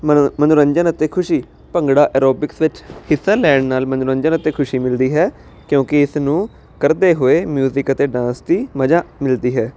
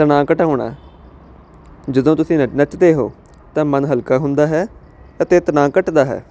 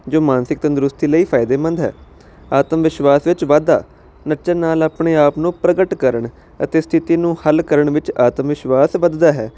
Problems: constant background noise